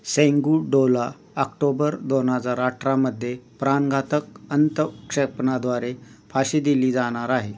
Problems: constant background noise